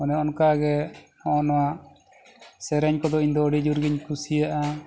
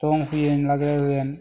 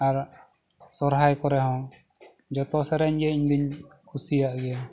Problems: none marked